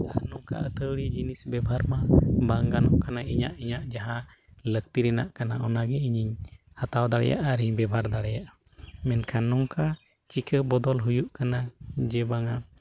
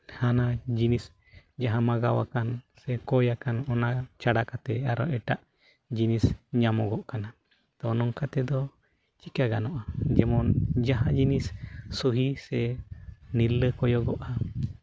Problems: constant background noise